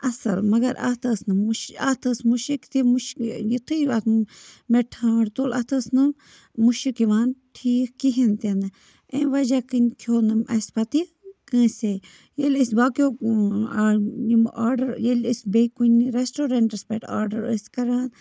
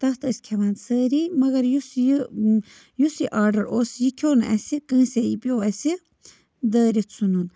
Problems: background sounds at intervals